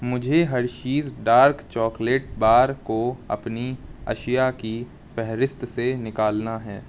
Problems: constant background noise